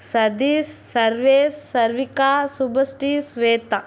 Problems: none marked